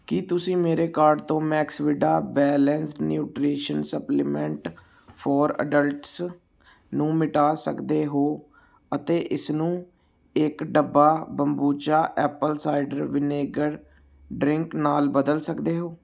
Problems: none marked